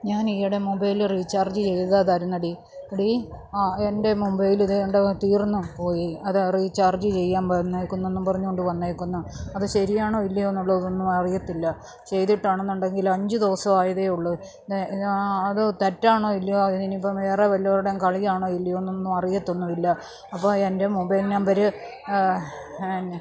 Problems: background sounds at intervals, low volume